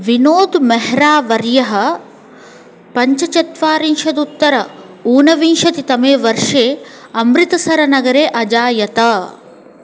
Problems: constant background noise